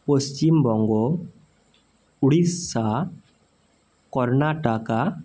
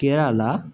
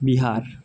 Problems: none marked